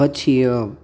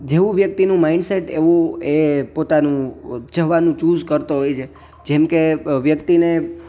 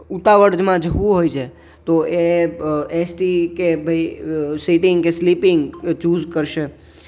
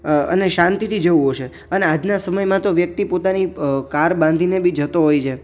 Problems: background sounds at intervals